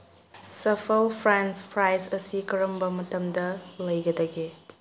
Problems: low volume